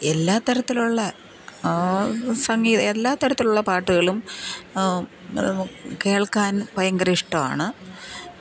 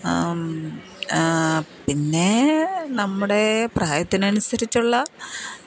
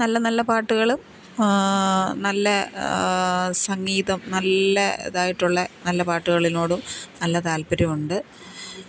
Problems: none marked